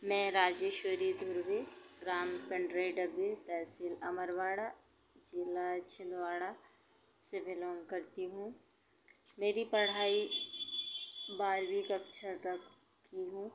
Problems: background sounds at intervals